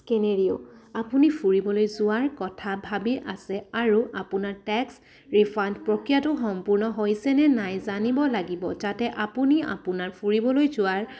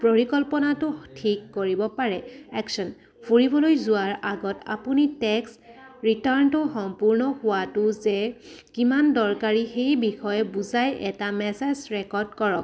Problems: background sounds at intervals, background conversations at intervals